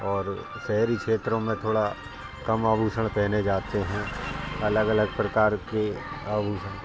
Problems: constant background noise, background conversations at intervals